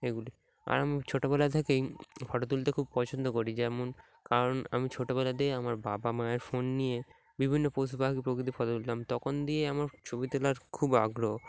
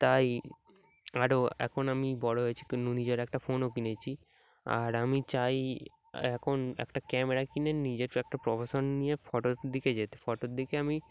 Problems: background sounds at intervals